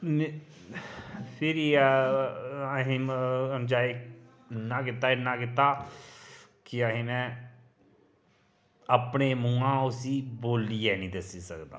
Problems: none marked